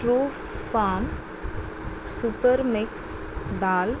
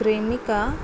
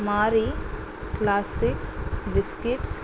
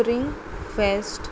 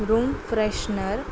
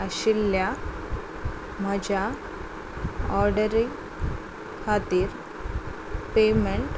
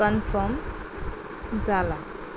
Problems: constant background noise